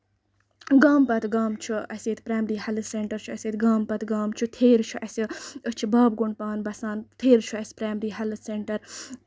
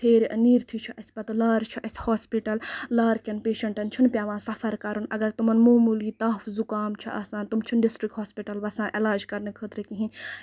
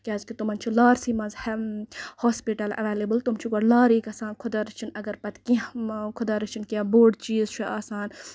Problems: none marked